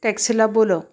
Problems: constant background noise